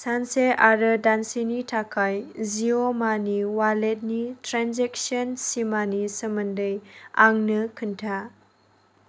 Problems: none marked